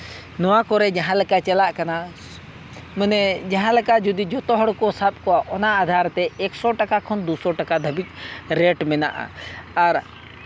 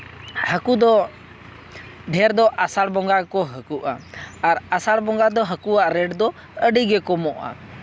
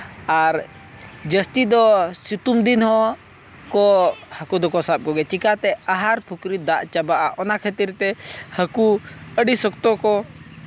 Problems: constant background noise